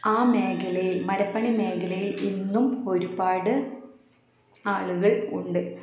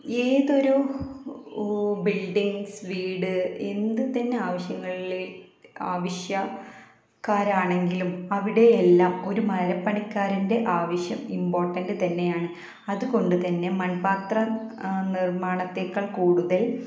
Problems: constant background noise, low volume